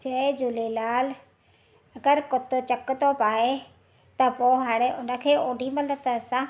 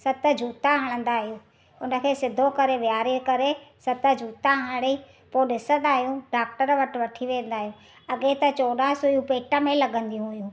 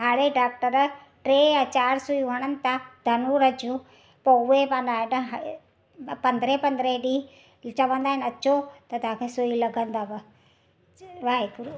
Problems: none marked